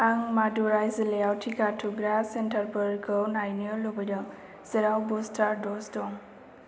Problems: constant background noise